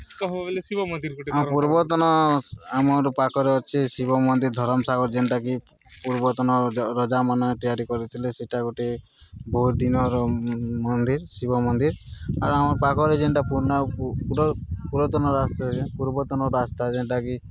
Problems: constant background noise, background conversations at intervals